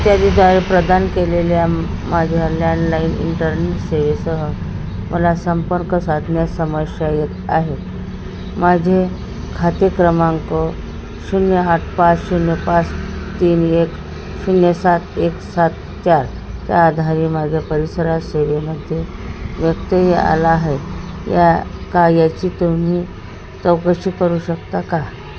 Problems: constant background noise